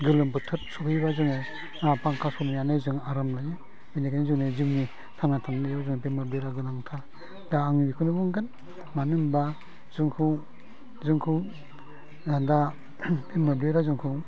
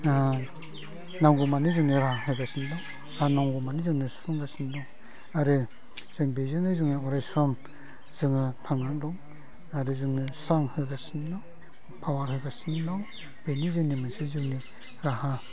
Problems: low volume